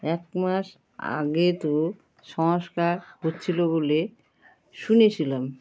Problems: constant background noise